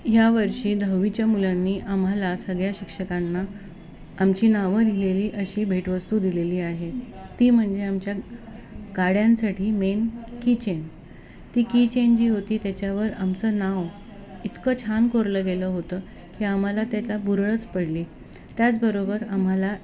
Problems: none marked